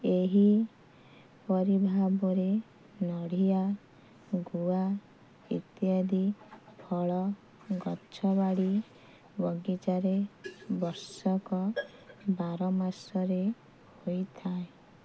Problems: constant background noise